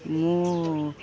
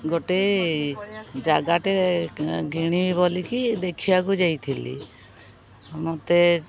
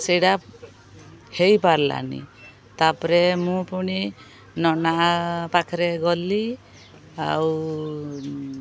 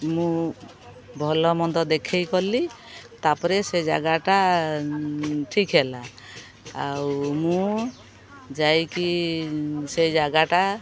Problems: none marked